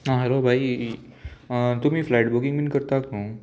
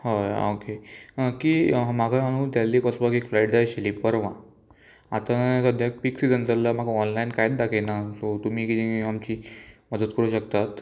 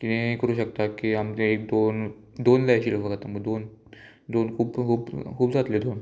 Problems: constant background noise, background conversations at intervals